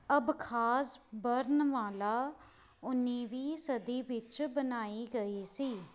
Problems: background sounds at intervals